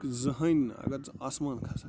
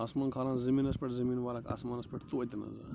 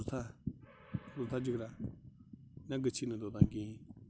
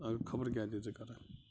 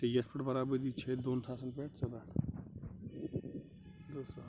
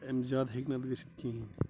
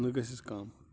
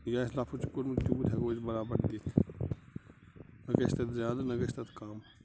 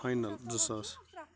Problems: constant background noise